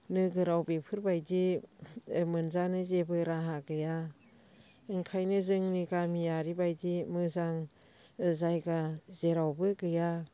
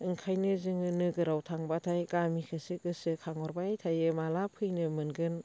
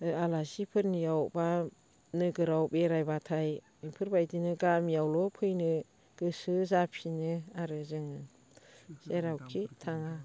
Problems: constant background noise